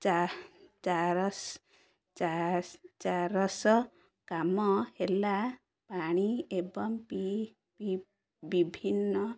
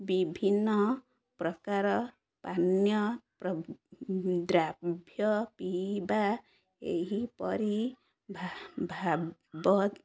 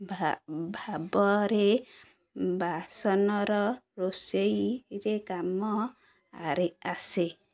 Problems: none marked